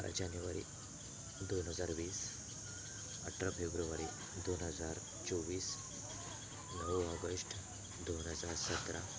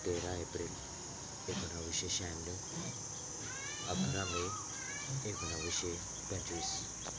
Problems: constant background noise, continuous background conversations